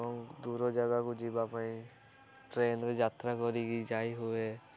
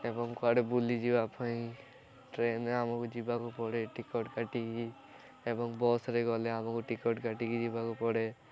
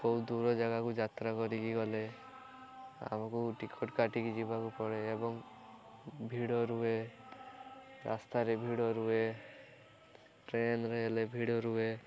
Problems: continuous background conversations